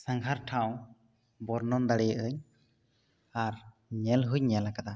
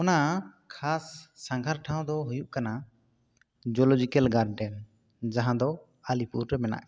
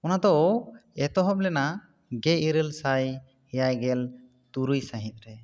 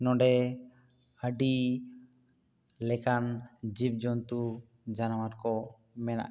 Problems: none marked